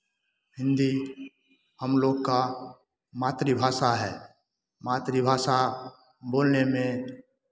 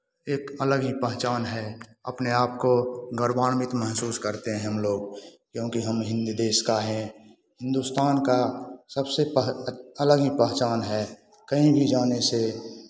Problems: constant background noise